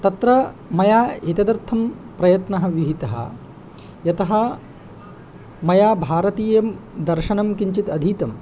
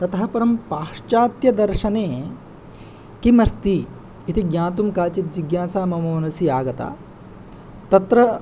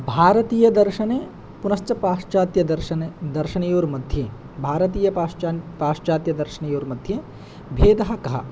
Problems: none marked